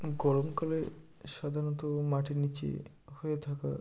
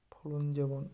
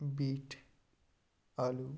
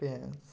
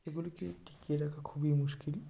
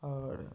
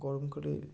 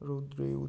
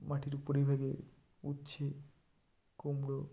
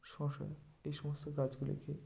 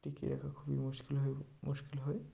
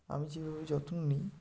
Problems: background sounds at intervals